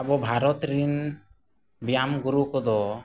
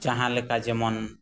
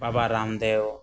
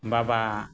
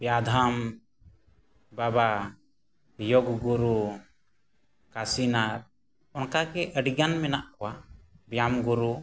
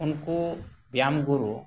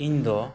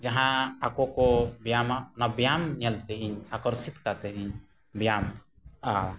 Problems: none marked